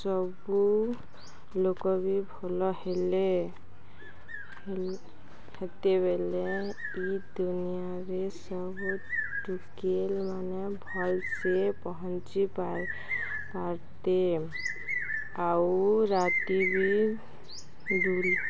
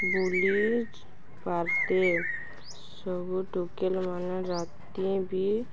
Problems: constant background noise